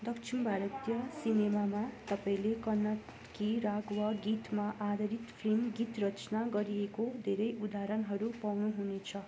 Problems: background sounds at intervals, background conversations at intervals